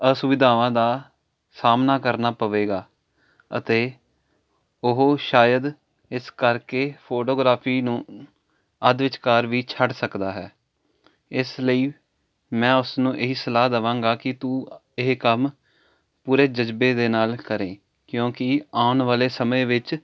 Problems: constant background noise